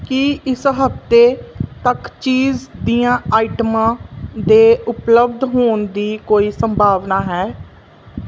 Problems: background sounds at intervals